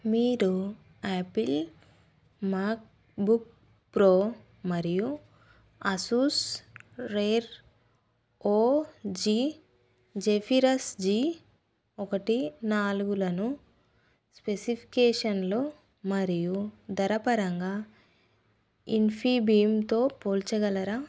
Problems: none marked